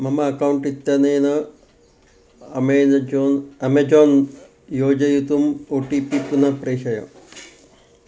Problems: constant background noise